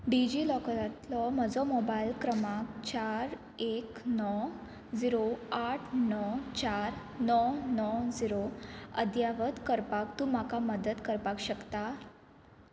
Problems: none marked